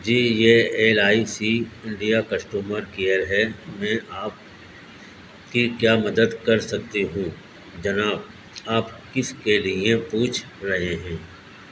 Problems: constant background noise